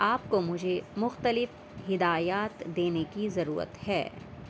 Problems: constant background noise